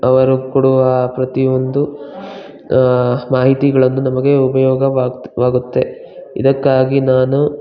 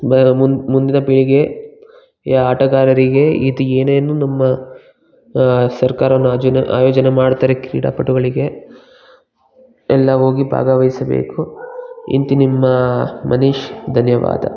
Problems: background sounds at intervals